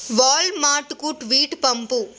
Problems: none marked